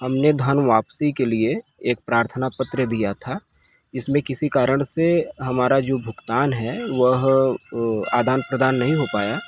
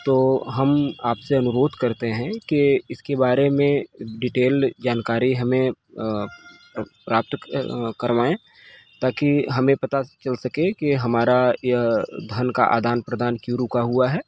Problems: constant background noise